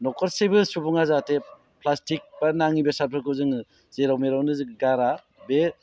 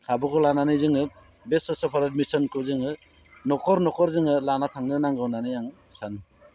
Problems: none marked